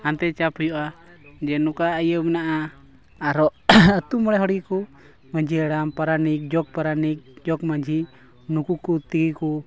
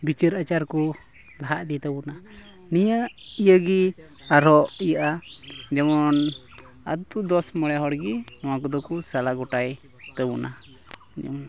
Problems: background sounds at intervals, continuous background conversations